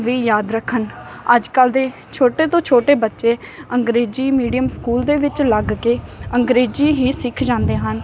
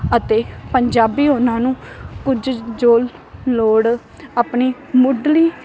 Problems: none marked